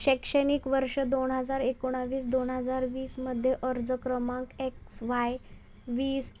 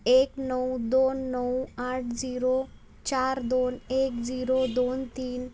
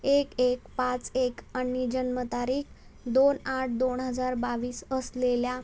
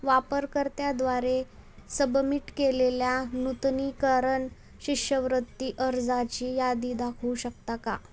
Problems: none marked